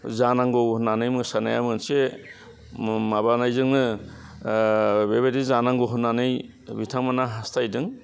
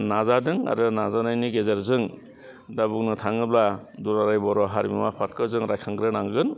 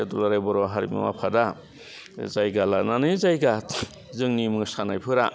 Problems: constant background noise